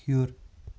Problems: constant background noise, low volume